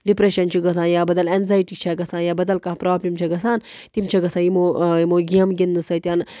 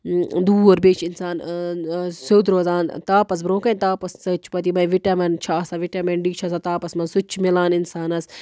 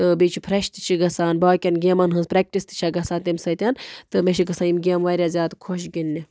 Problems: constant background noise